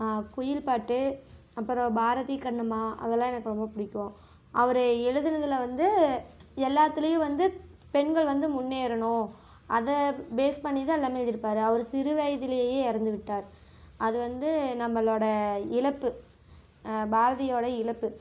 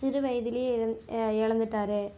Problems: none marked